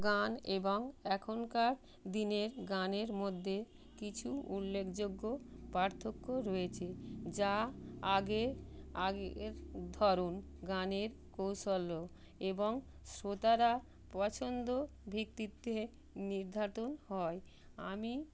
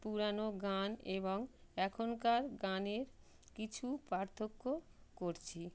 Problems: constant background noise